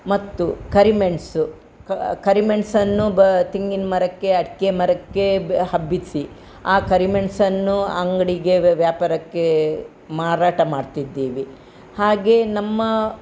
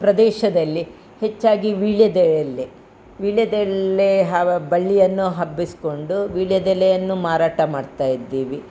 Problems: none marked